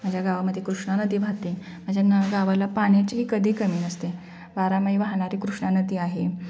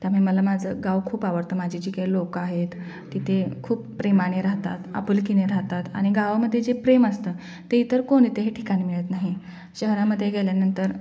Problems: background sounds at intervals, continuous background conversations